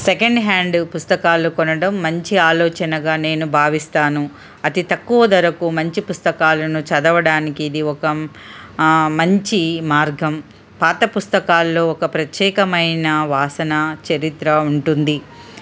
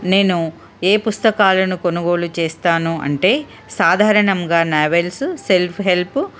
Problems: none marked